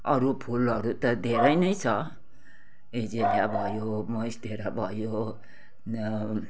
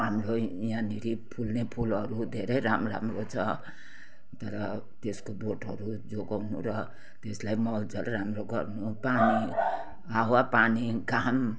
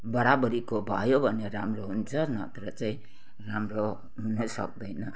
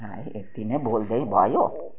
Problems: background sounds at intervals, background conversations at intervals